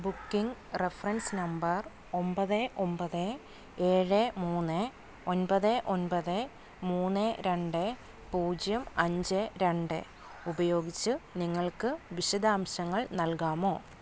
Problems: none marked